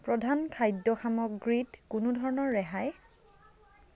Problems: none marked